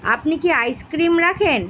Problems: none marked